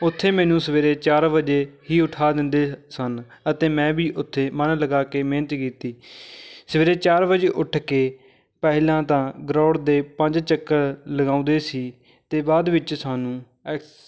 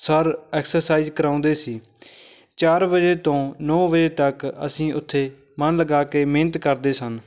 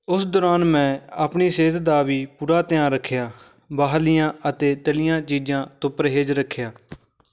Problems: none marked